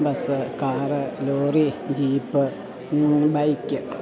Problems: continuous background conversations